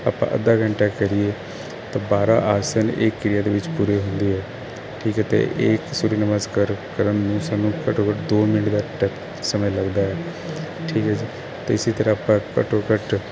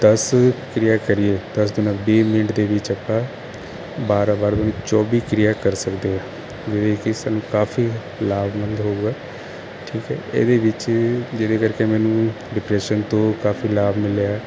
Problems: constant background noise